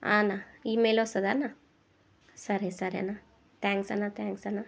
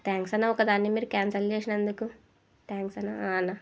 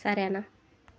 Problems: none marked